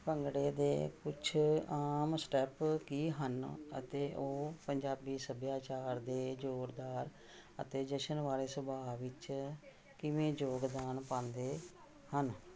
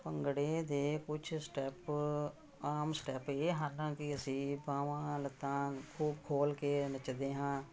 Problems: background conversations at intervals